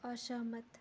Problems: low volume